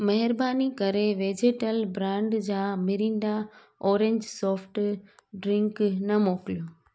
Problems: none marked